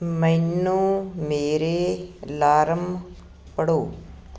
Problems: none marked